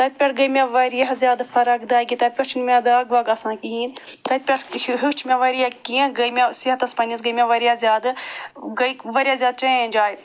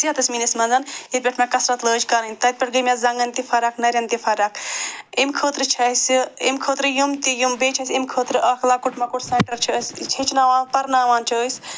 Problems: none marked